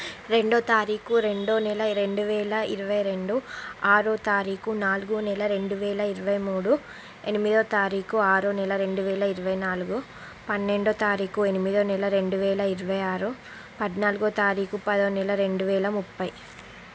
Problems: constant background noise